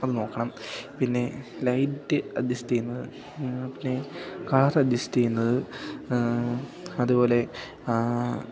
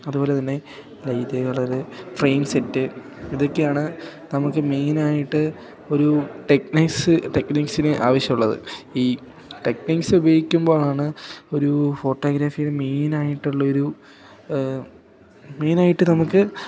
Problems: continuous background conversations